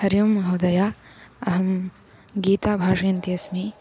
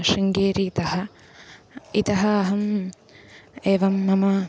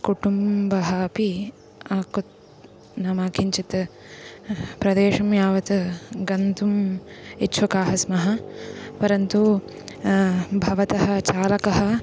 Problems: constant background noise